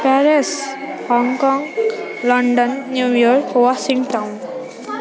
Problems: constant background noise